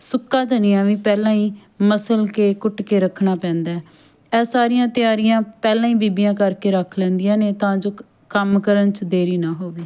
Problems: background conversations at intervals